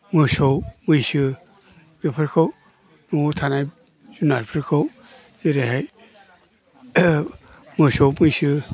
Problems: low volume